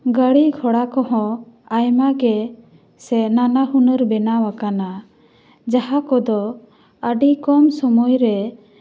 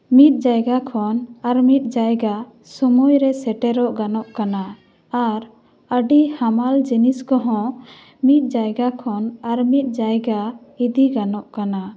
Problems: none marked